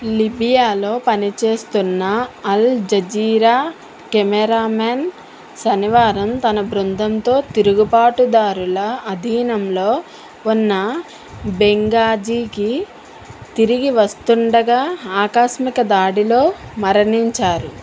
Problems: constant background noise